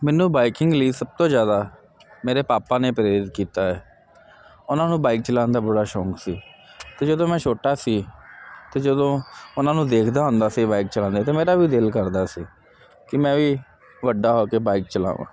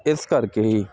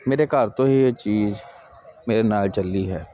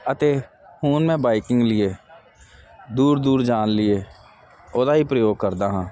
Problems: none marked